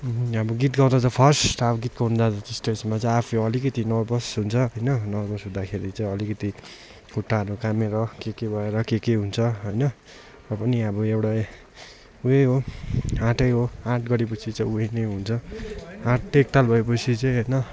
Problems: constant background noise, continuous background conversations